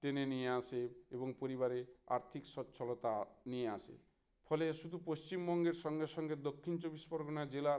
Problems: none marked